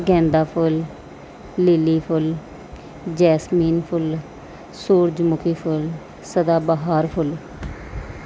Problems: background sounds at intervals